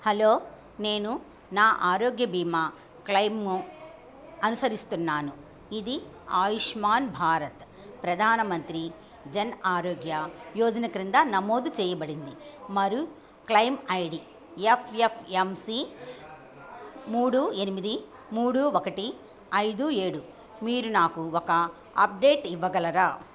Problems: background conversations at intervals